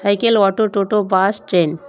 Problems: constant background noise